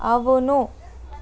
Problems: constant background noise